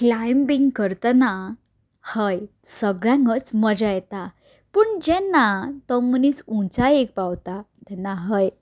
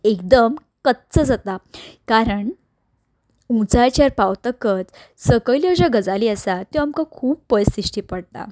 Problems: constant background noise